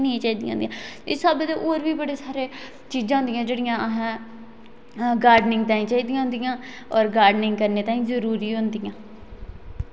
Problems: none marked